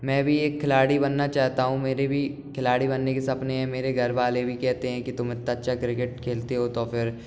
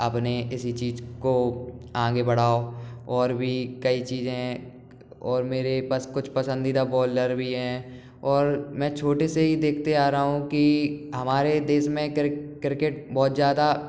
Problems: background sounds at intervals